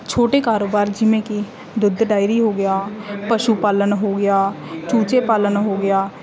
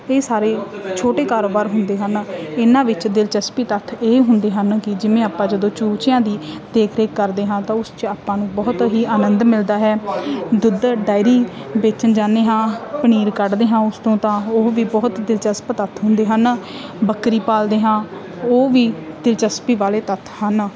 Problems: background sounds at intervals